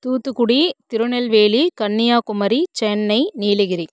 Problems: none marked